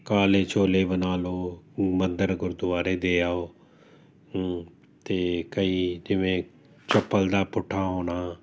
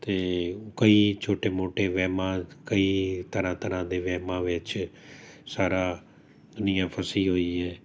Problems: constant background noise